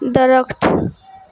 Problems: constant background noise